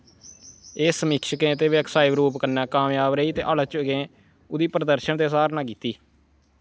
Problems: constant background noise